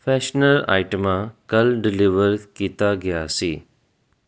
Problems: none marked